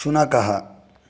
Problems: none marked